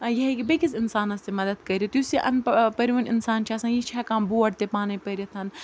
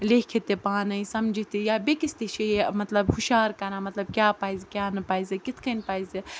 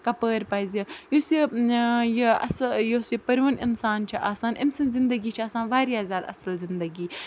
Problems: constant background noise